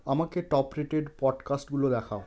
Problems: continuous background conversations